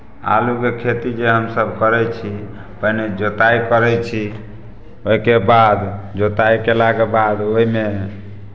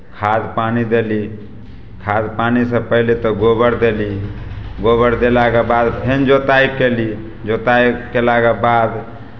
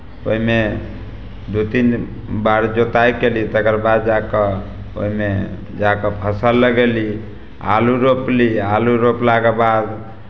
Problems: none marked